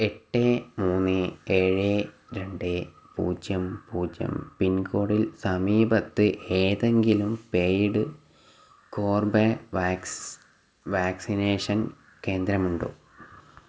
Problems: background sounds at intervals